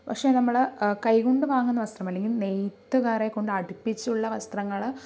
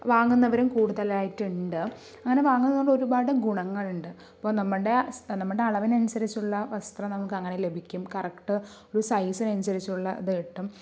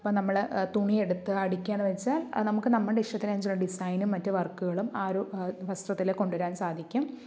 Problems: none marked